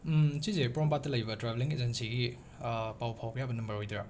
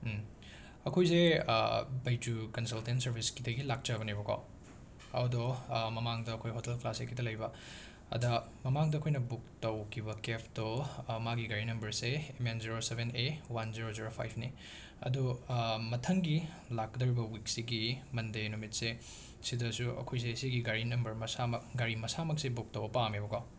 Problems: constant background noise